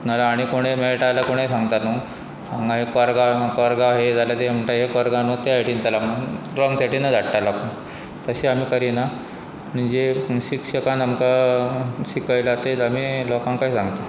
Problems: constant background noise